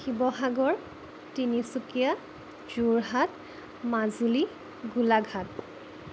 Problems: constant background noise